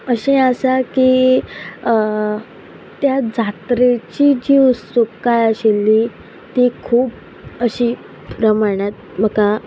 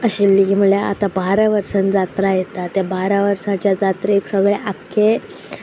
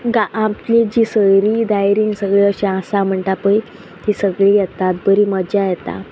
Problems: none marked